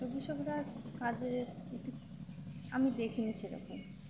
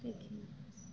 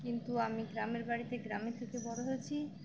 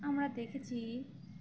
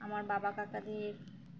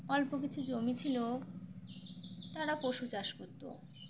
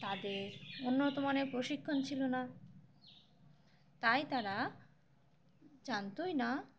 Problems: constant background noise, low volume